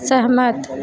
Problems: constant background noise